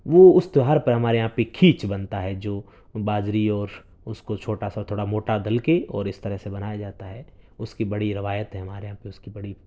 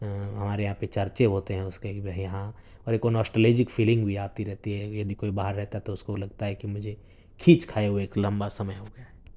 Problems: none marked